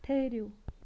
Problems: background sounds at intervals, low volume